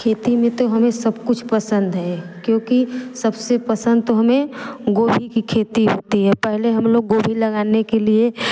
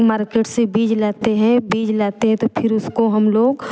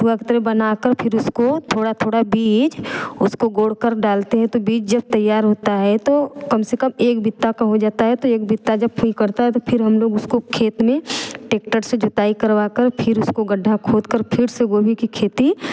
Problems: background conversations at intervals